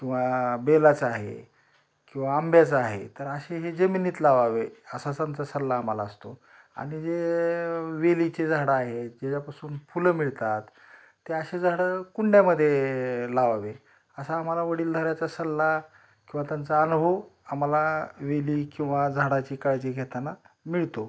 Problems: none marked